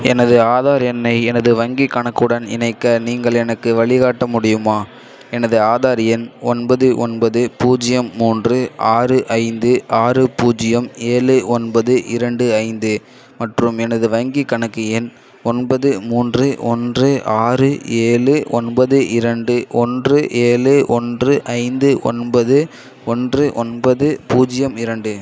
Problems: echo